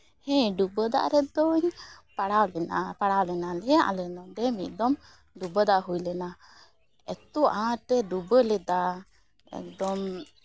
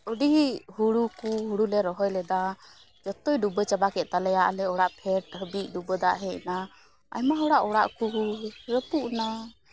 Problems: background sounds at intervals